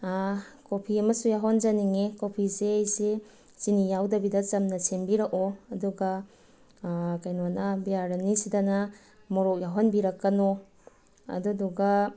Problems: background sounds at intervals